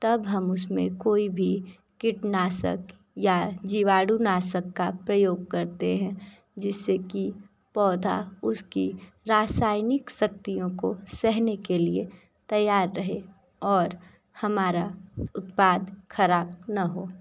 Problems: none marked